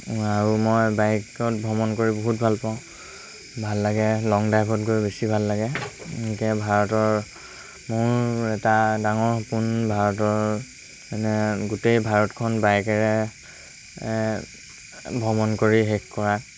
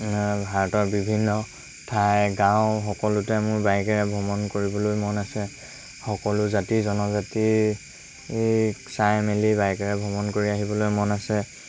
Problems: constant background noise